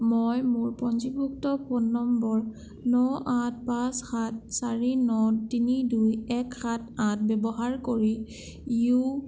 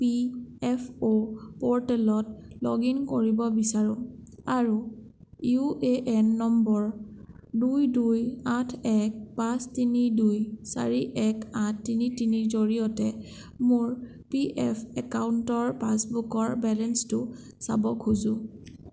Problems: none marked